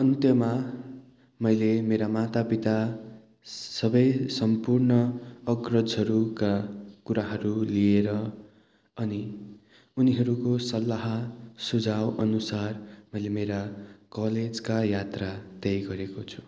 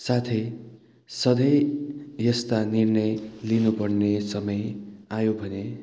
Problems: constant background noise